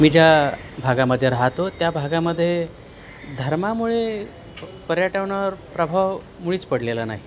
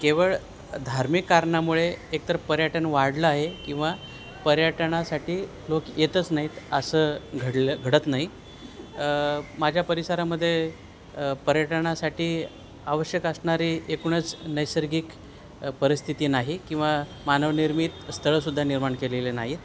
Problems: none marked